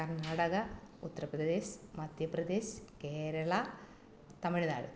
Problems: none marked